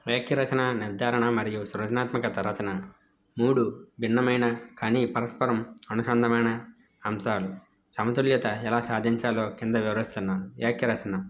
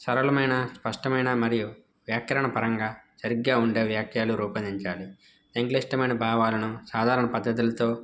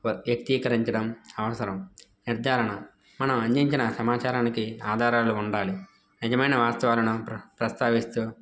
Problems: background sounds at intervals